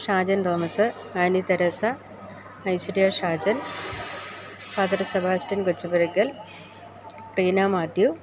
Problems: background sounds at intervals